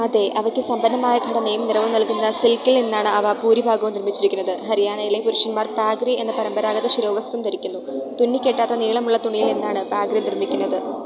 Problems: constant background noise, low volume